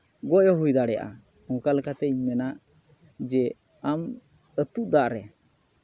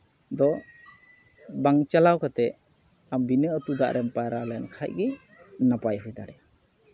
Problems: background conversations at intervals